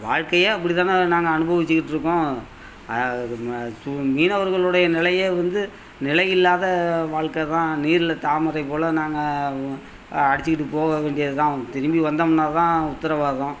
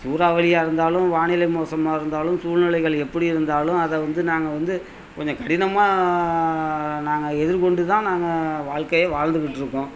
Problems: none marked